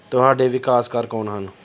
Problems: background sounds at intervals